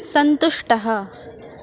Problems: constant background noise